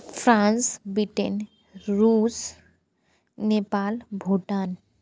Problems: constant background noise